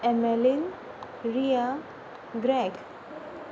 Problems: constant background noise